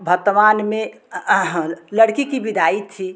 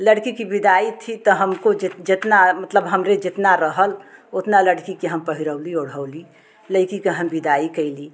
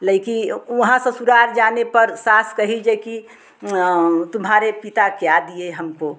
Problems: none marked